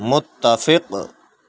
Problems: none marked